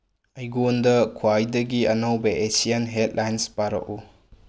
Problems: low volume